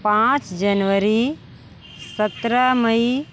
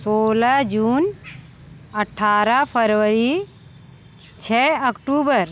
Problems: constant background noise, background conversations at intervals